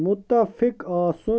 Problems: constant background noise